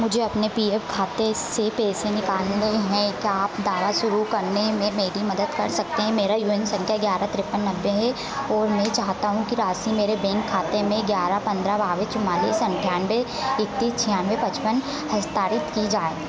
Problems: none marked